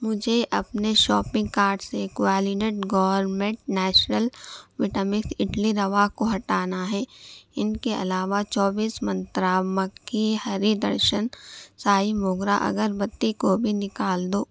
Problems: background sounds at intervals